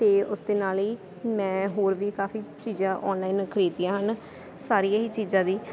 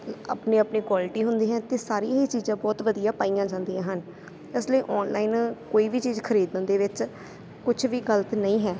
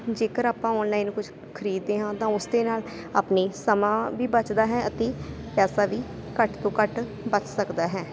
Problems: constant background noise